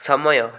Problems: none marked